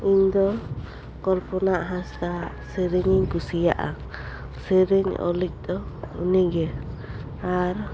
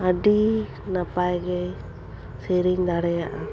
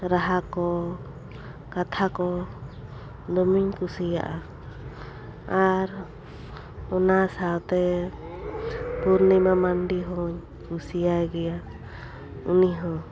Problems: background sounds at intervals